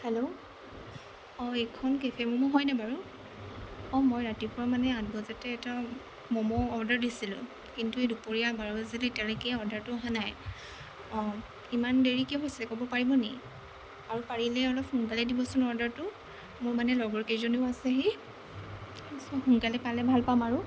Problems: constant background noise, low volume